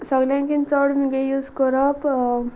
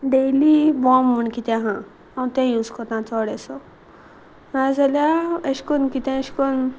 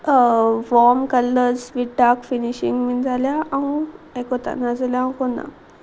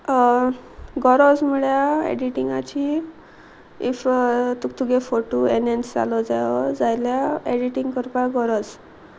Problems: constant background noise